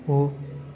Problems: constant background noise